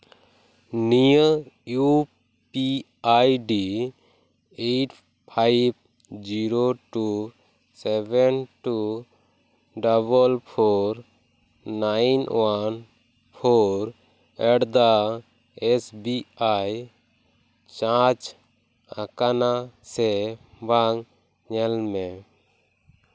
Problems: none marked